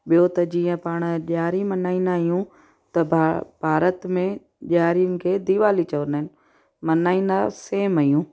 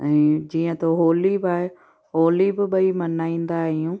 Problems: background sounds at intervals